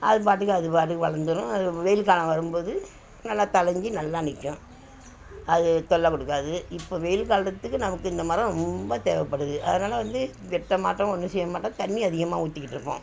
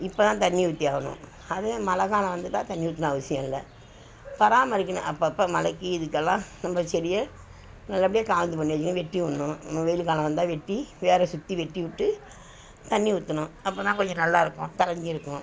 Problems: background sounds at intervals